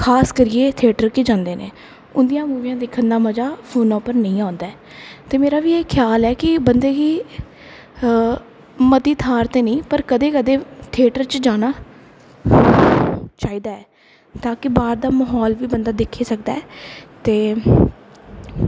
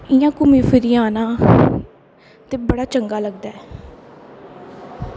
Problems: constant background noise, echo